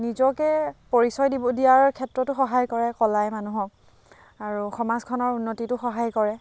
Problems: constant background noise, background conversations at intervals